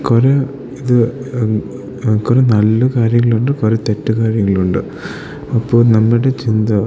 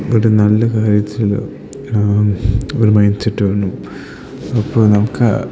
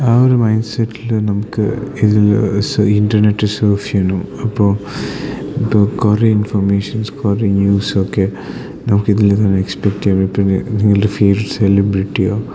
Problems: none marked